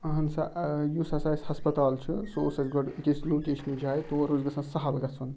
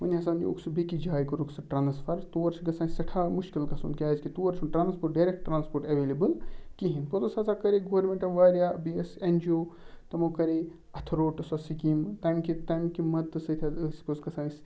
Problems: background sounds at intervals